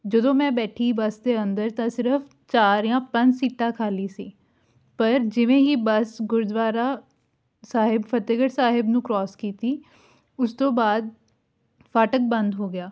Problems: none marked